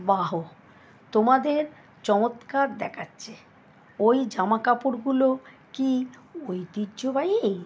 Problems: none marked